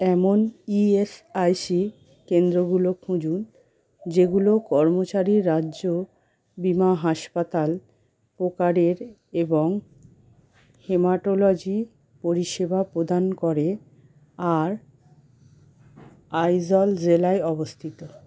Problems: constant background noise